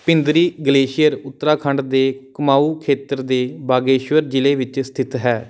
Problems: background sounds at intervals